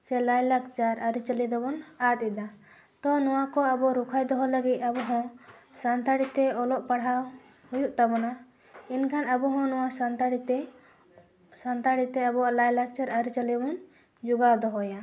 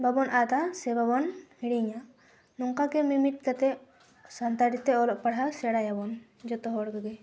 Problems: constant background noise